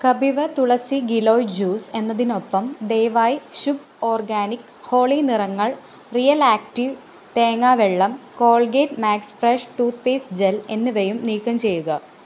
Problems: constant background noise